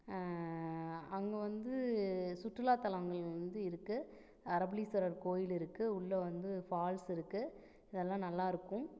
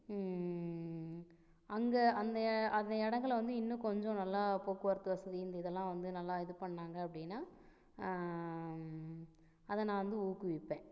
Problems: none marked